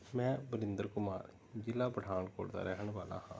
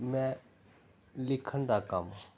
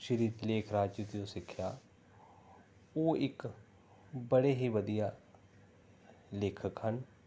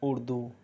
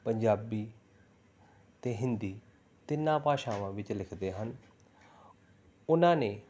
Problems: background sounds at intervals